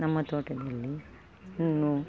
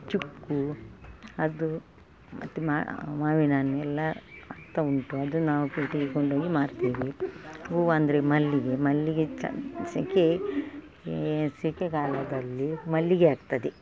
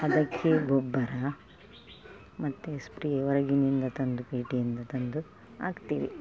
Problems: background sounds at intervals